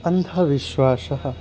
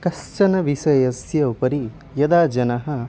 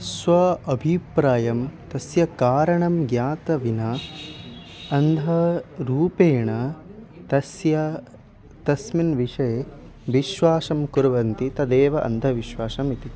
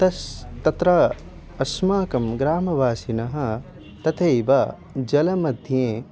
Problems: background sounds at intervals